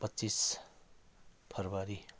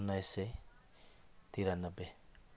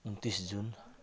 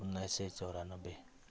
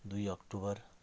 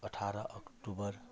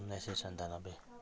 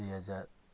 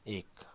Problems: background sounds at intervals